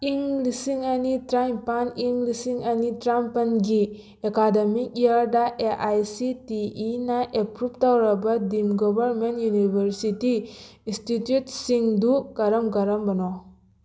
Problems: background sounds at intervals